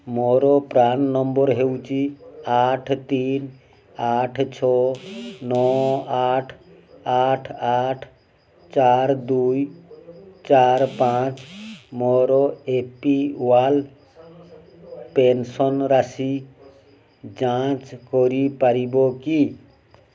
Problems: background sounds at intervals, continuous background conversations